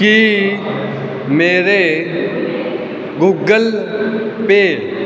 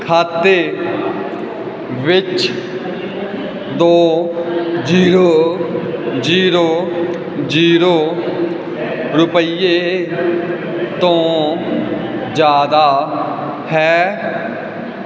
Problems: none marked